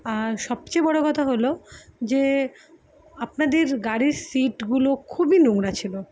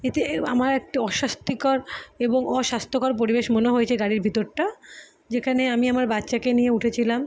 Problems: background sounds at intervals